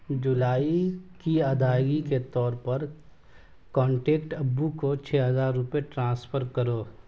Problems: none marked